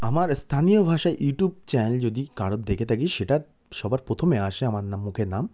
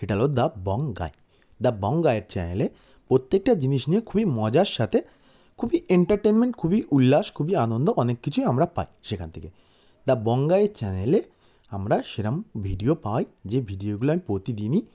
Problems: background sounds at intervals